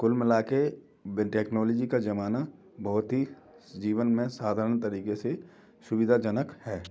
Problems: none marked